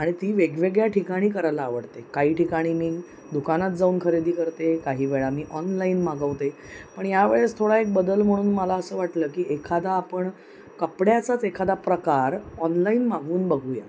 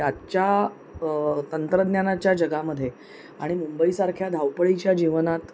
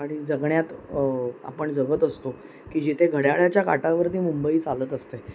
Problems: constant background noise